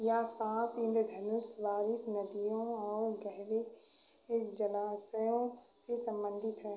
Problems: background sounds at intervals, echo